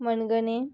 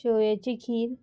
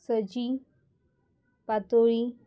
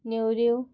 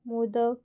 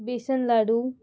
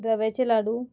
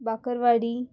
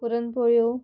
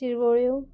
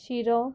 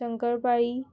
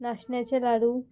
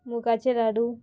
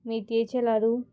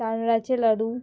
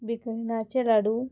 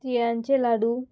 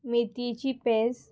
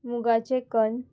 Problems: background sounds at intervals